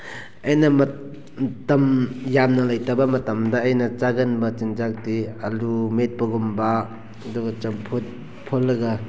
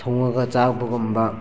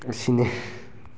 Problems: constant background noise